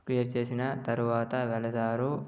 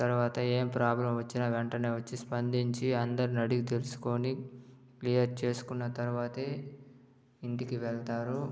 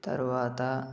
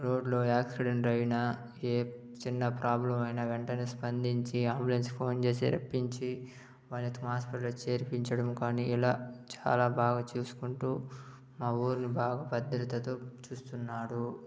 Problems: low volume